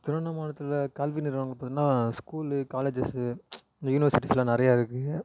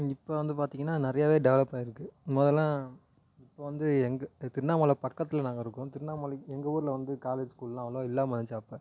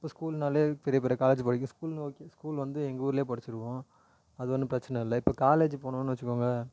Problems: echo